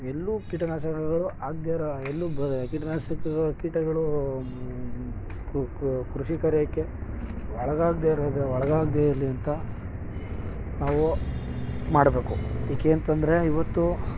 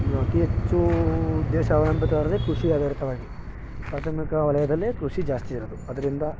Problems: background sounds at intervals